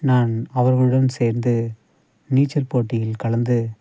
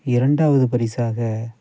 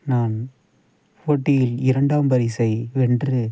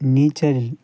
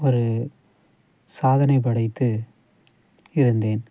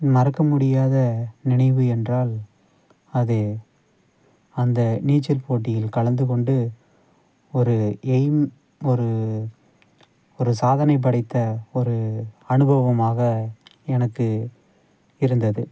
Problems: none marked